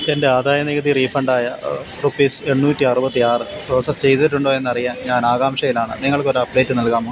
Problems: constant background noise